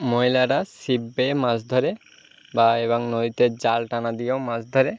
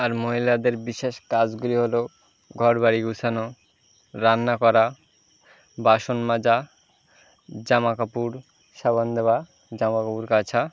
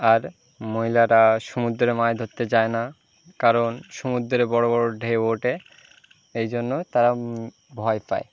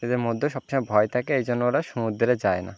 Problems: none marked